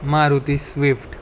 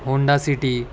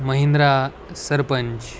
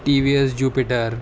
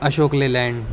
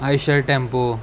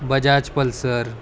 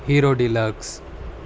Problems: constant background noise